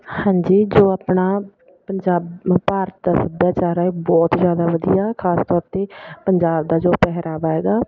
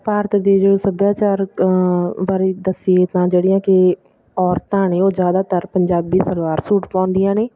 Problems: none marked